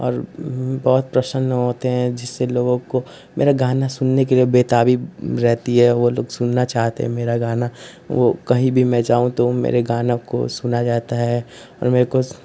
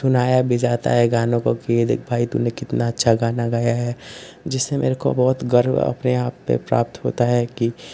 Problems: constant background noise